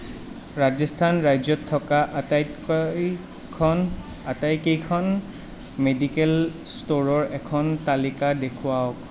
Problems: constant background noise